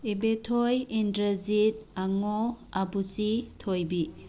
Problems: background sounds at intervals, background conversations at intervals